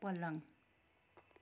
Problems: none marked